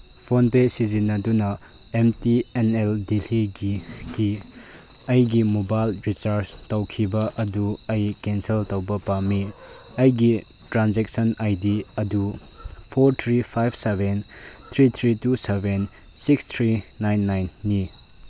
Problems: background sounds at intervals